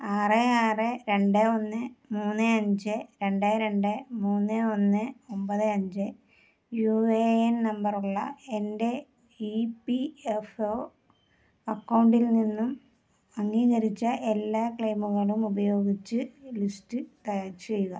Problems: low volume